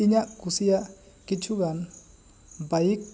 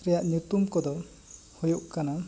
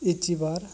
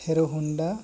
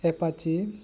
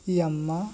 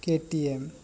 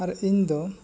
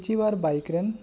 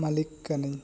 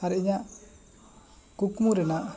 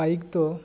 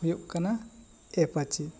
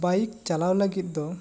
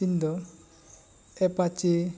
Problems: constant background noise, background conversations at intervals